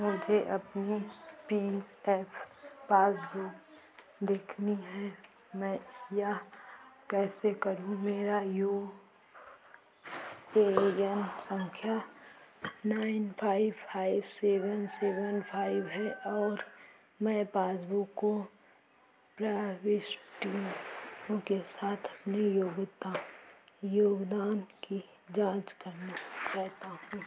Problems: constant background noise, echo